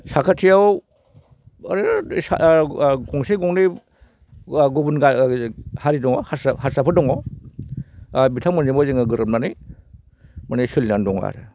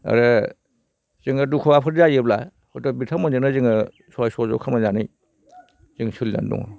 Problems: none marked